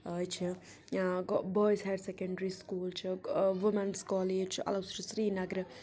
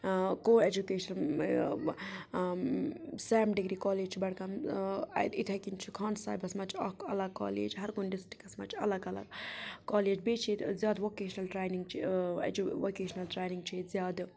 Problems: background sounds at intervals, low volume